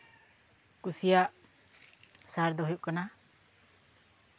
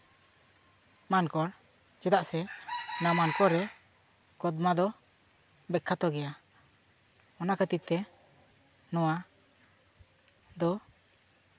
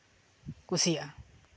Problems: background sounds at intervals